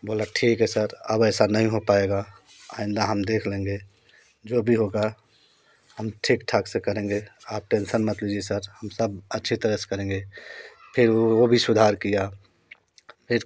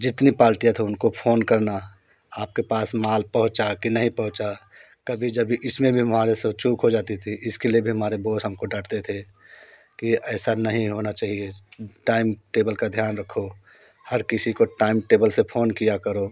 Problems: constant background noise